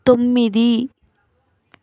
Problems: none marked